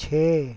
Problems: constant background noise